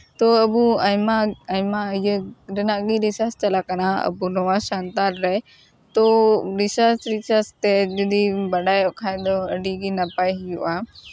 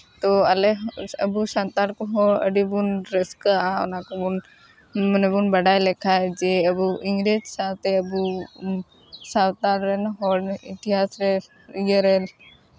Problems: none marked